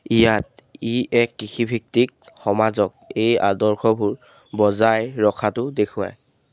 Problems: background sounds at intervals